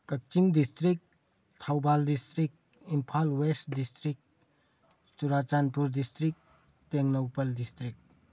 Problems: none marked